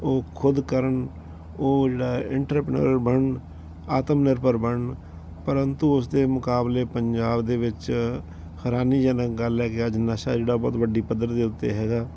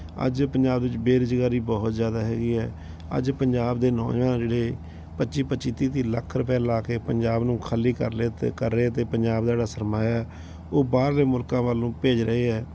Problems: background sounds at intervals